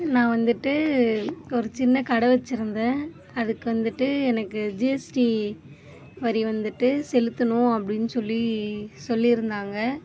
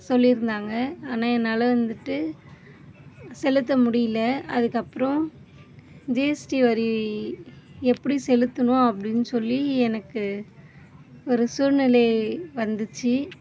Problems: background sounds at intervals, low volume